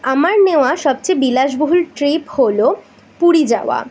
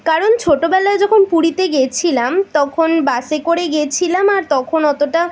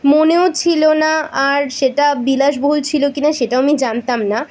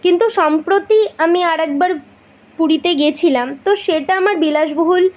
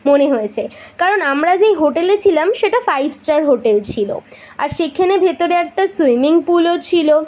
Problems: none marked